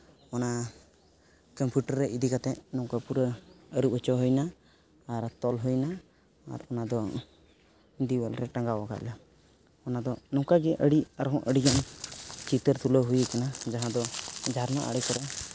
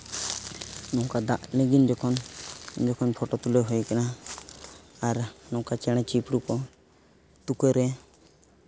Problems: background sounds at intervals